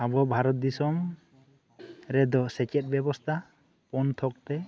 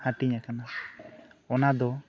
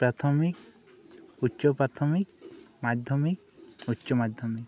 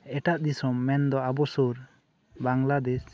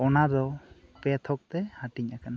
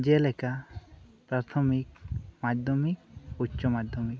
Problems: none marked